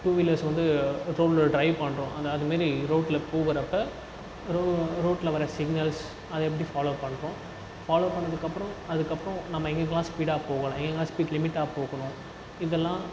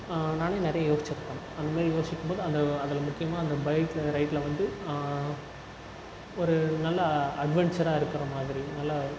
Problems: constant background noise, low volume